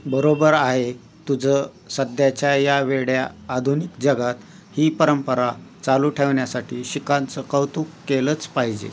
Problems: constant background noise